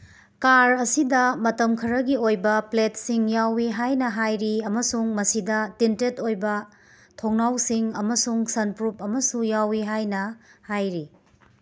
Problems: none marked